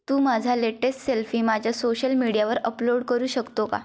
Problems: none marked